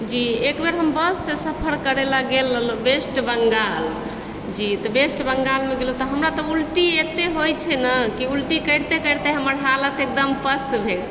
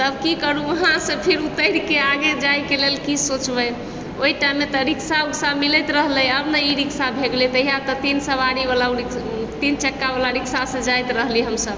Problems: constant background noise